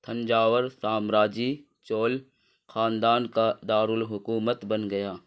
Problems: none marked